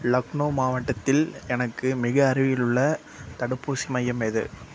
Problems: constant background noise